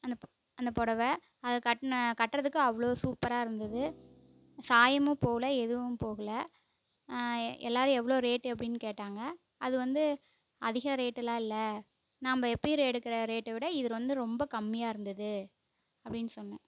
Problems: background sounds at intervals